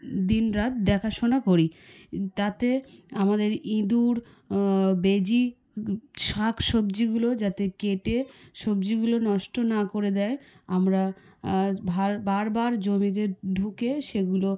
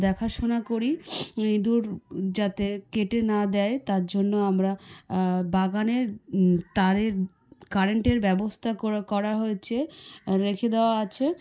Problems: background sounds at intervals, background conversations at intervals